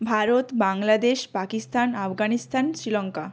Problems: constant background noise